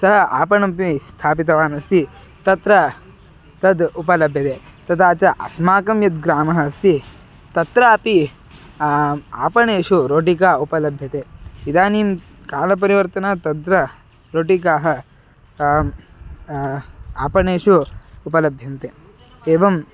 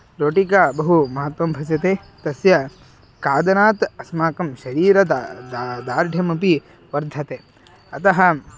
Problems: constant background noise, continuous background conversations